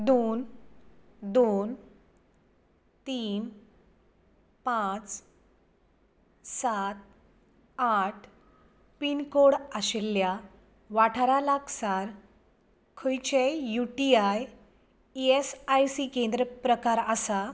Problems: background sounds at intervals